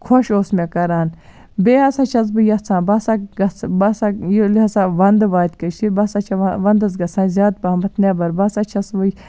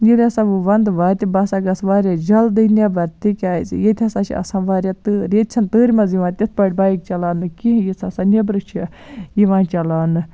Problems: none marked